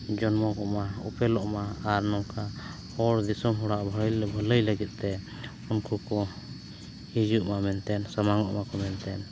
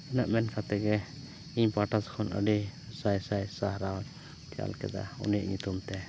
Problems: background sounds at intervals, low volume